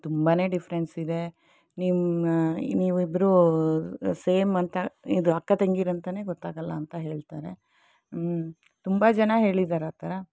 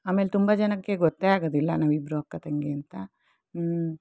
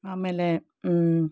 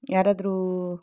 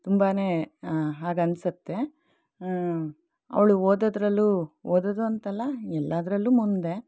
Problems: none marked